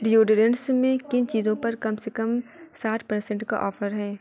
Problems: background sounds at intervals, background conversations at intervals